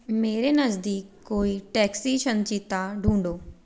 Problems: background sounds at intervals